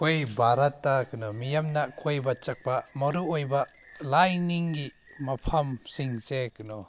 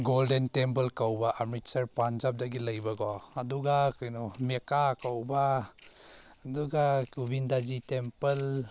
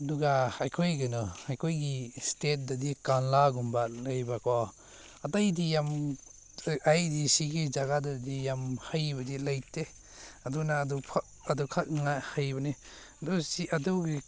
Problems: background sounds at intervals